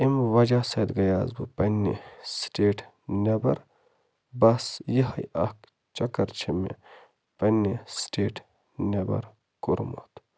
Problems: constant background noise